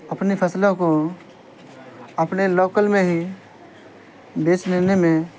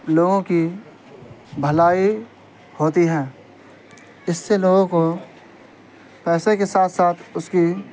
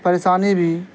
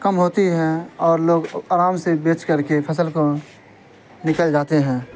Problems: constant background noise